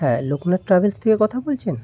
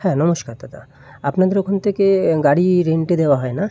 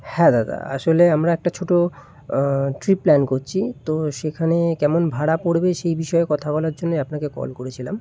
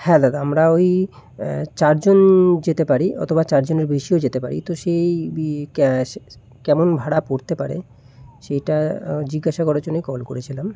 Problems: none marked